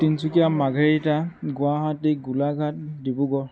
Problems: none marked